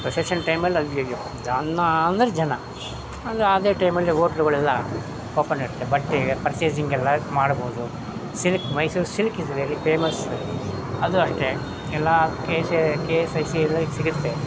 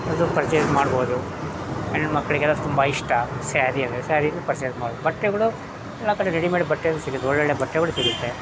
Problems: background sounds at intervals